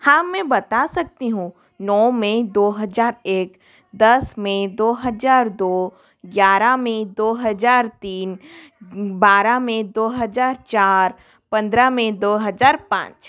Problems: background sounds at intervals